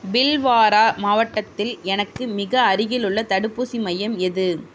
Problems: none marked